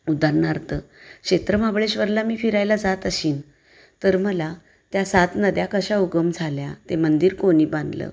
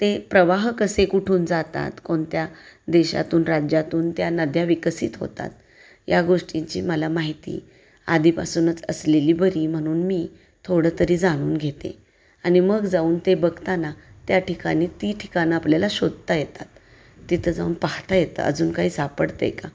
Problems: constant background noise